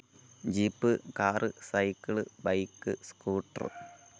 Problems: none marked